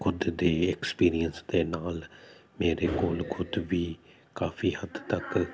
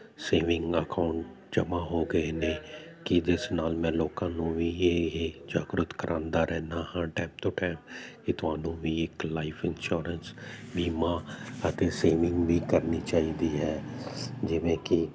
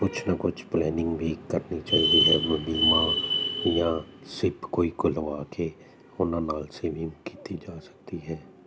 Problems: constant background noise